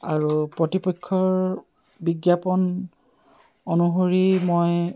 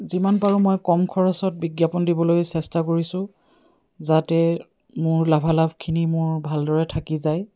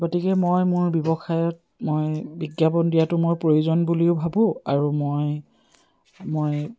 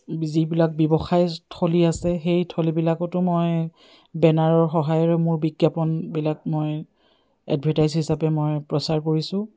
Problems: none marked